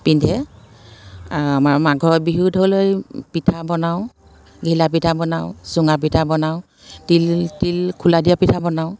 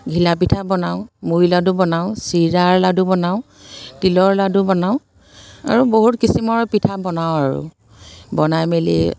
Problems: constant background noise